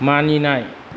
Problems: constant background noise